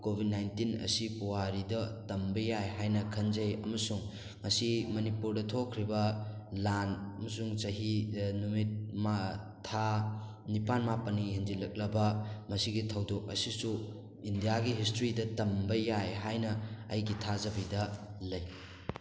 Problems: background sounds at intervals, background conversations at intervals